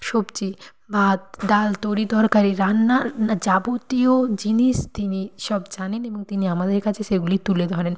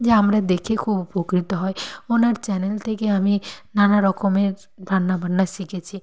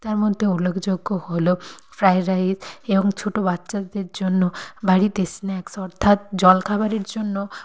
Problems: background sounds at intervals